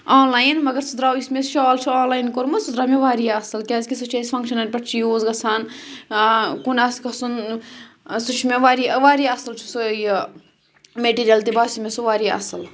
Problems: background sounds at intervals